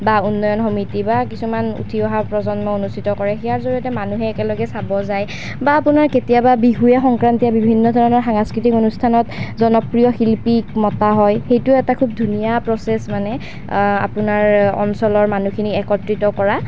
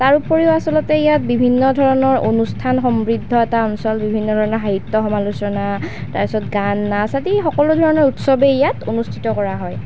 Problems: constant background noise